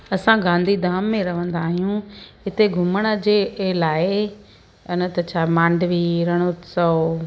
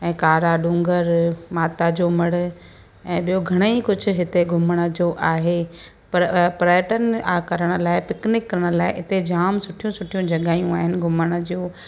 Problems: constant background noise, echo